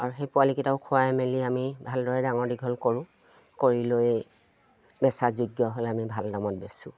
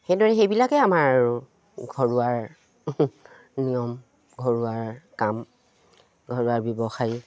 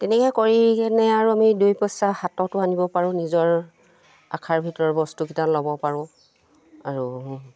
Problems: none marked